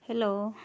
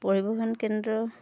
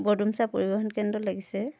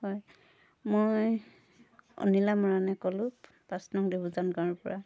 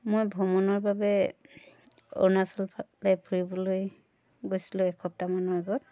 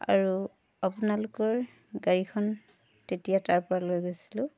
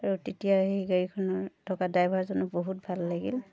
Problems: background sounds at intervals, continuous background conversations